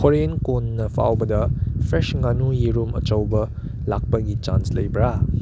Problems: none marked